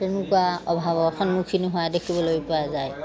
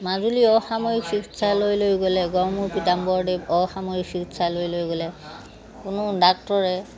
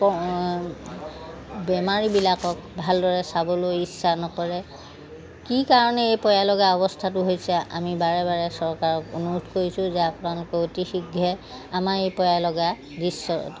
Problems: constant background noise, background conversations at intervals